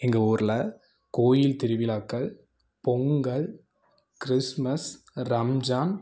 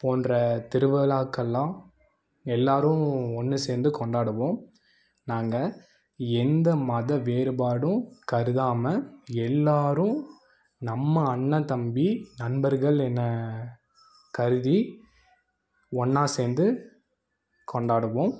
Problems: none marked